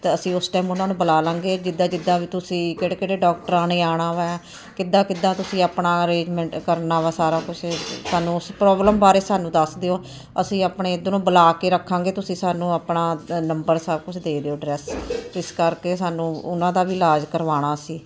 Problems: none marked